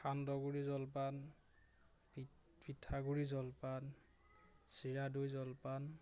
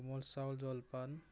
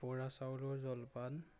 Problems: none marked